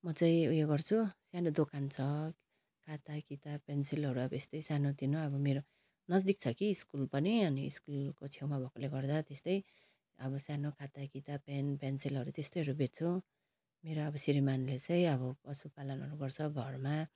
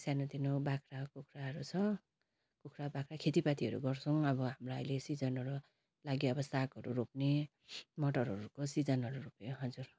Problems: constant background noise